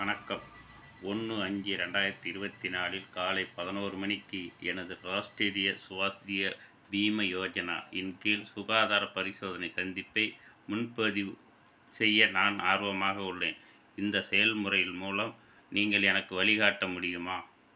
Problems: constant background noise